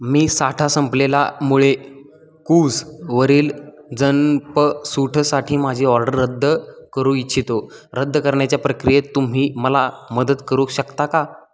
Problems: none marked